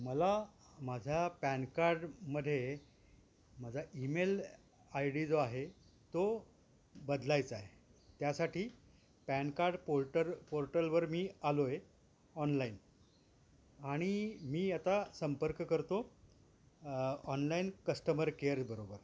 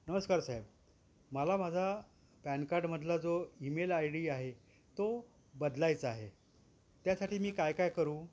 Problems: background sounds at intervals